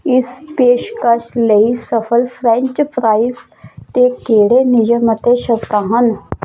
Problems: none marked